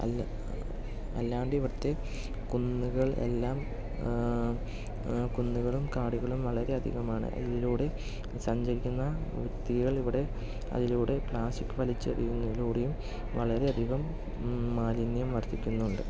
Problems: low volume